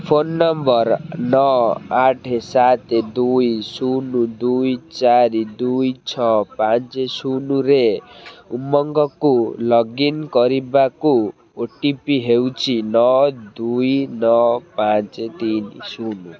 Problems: constant background noise